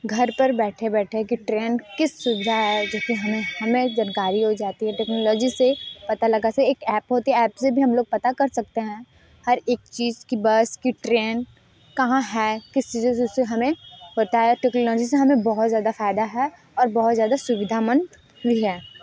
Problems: background sounds at intervals